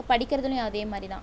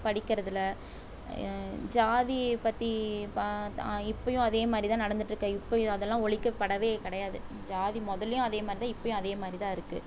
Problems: background sounds at intervals